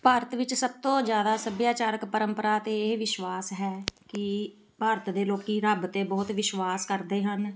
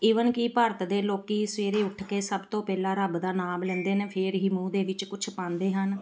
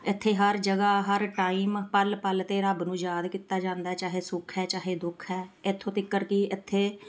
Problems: background sounds at intervals, background conversations at intervals